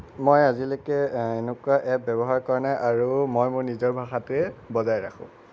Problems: none marked